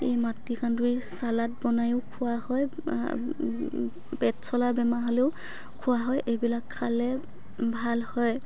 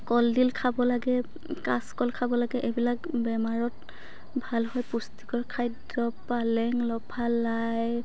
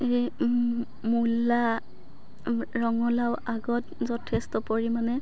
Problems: background conversations at intervals